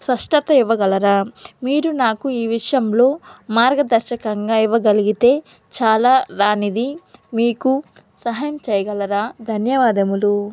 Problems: none marked